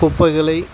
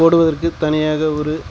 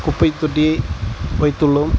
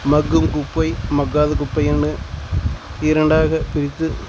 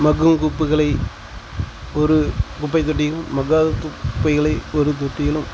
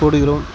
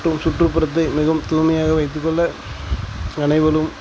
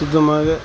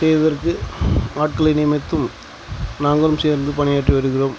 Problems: background sounds at intervals